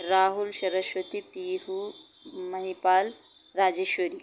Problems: background sounds at intervals